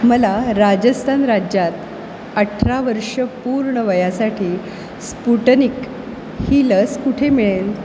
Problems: constant background noise